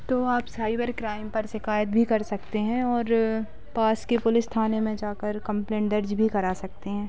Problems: background sounds at intervals, background conversations at intervals